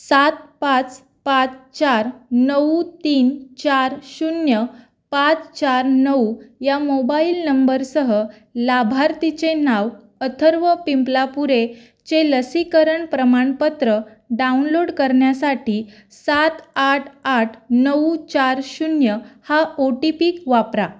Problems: background sounds at intervals